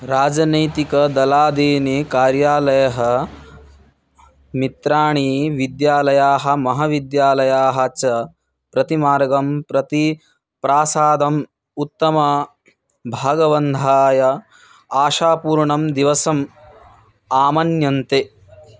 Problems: background conversations at intervals